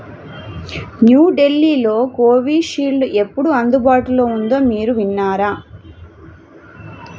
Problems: constant background noise